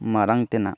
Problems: none marked